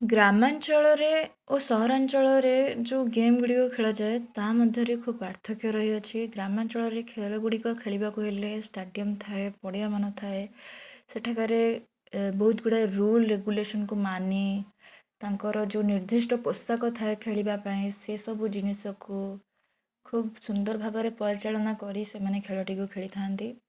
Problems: none marked